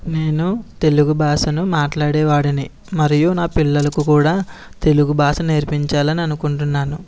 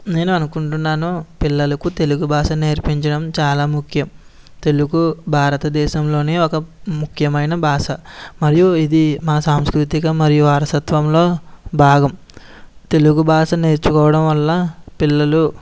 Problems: none marked